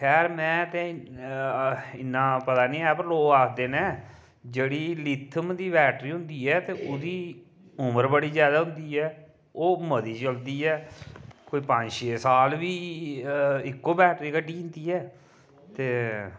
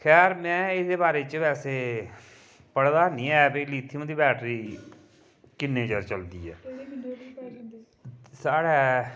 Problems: none marked